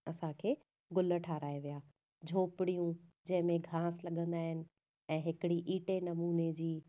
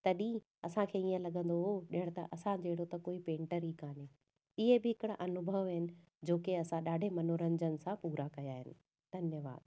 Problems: none marked